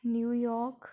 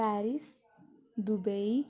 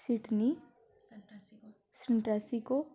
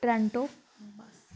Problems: background conversations at intervals